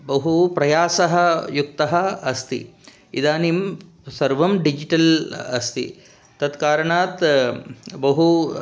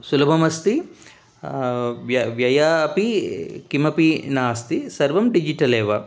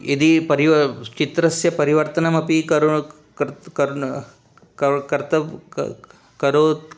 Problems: none marked